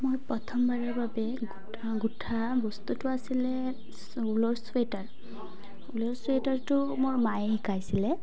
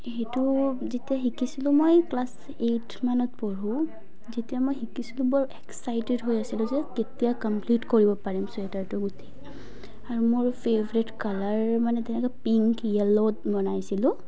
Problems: none marked